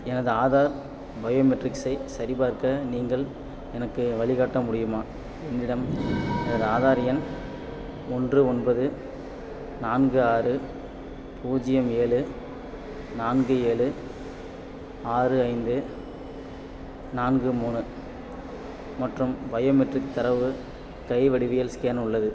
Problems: background sounds at intervals